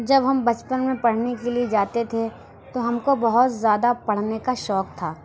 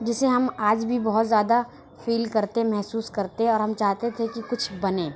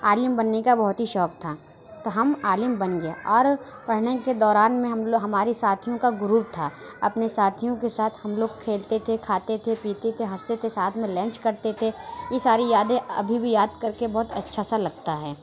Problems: background sounds at intervals